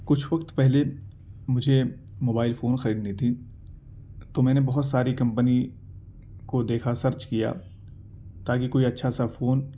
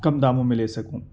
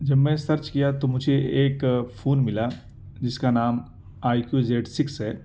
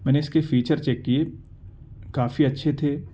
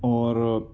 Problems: none marked